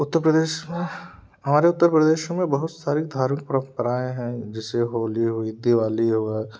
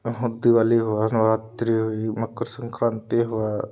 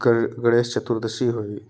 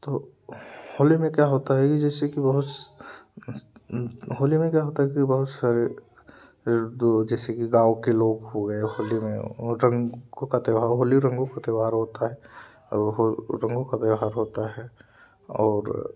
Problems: none marked